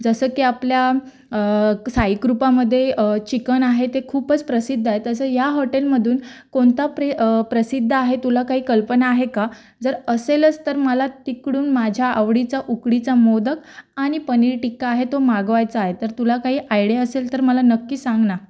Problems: background sounds at intervals